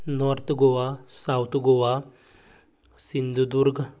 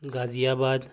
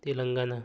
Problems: background sounds at intervals, low volume